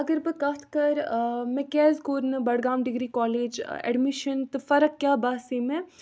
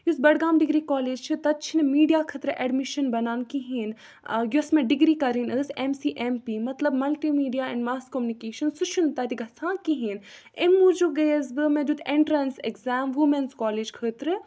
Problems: background sounds at intervals